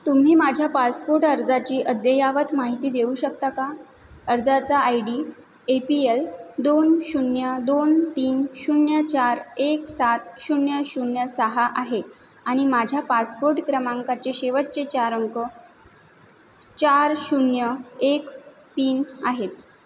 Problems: none marked